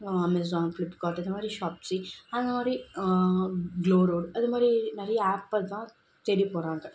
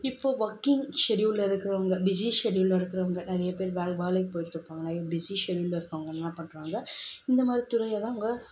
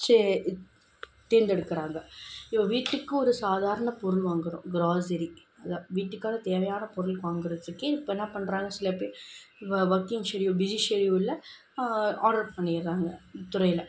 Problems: constant background noise